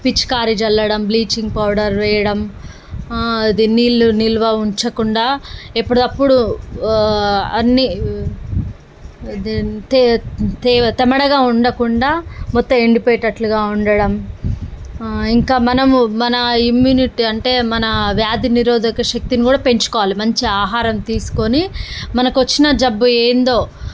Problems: none marked